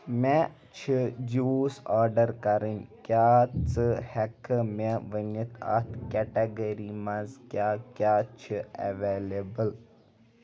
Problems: background sounds at intervals, background conversations at intervals